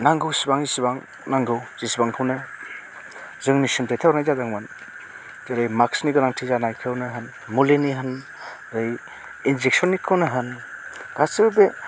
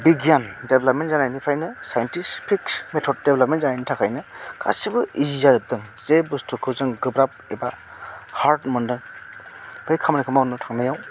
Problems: constant background noise